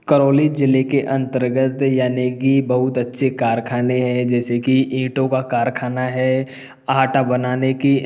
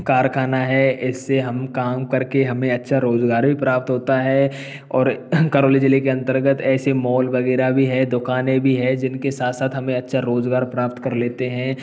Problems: background sounds at intervals